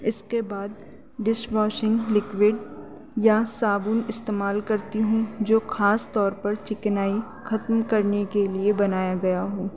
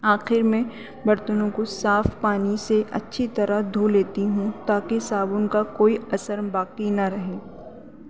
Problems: constant background noise